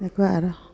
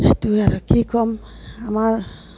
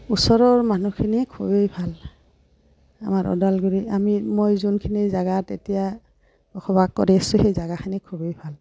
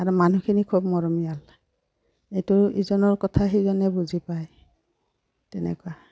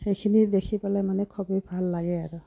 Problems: background sounds at intervals